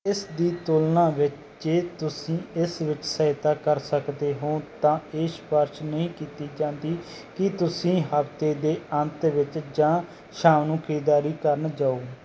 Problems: background sounds at intervals